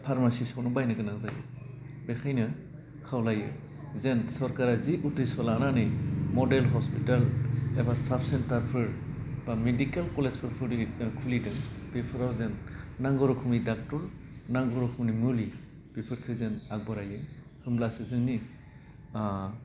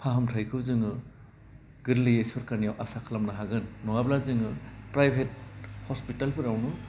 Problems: constant background noise